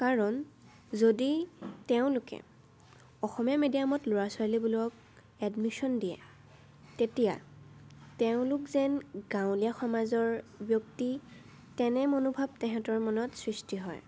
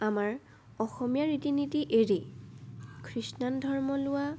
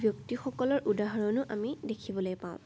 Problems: none marked